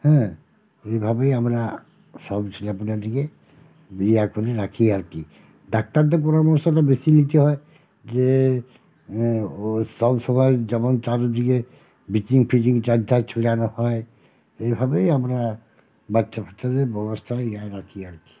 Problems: constant background noise